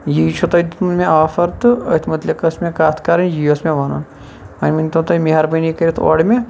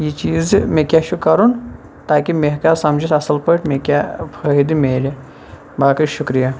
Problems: constant background noise